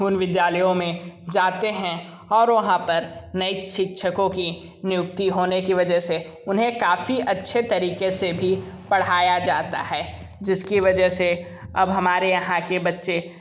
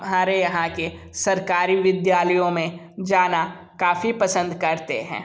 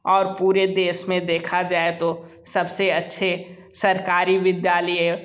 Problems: none marked